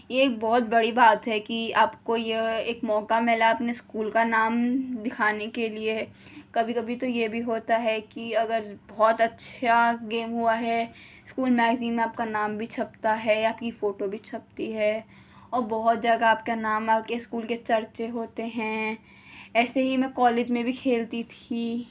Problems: none marked